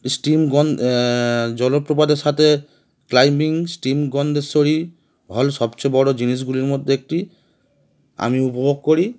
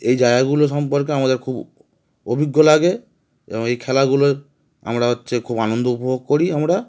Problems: constant background noise